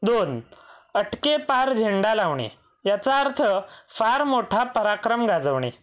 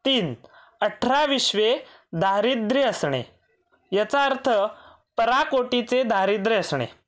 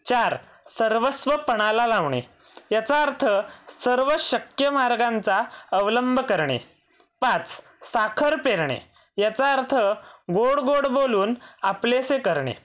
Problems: background sounds at intervals